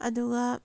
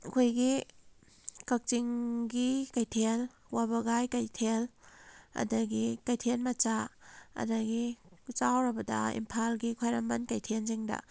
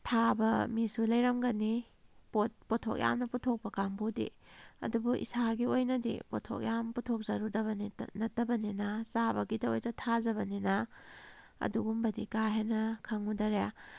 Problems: none marked